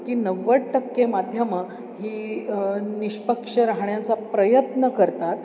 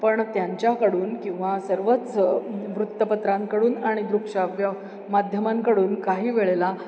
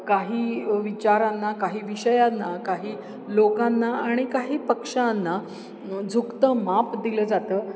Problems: background sounds at intervals, background conversations at intervals